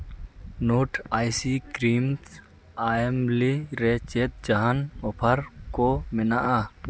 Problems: constant background noise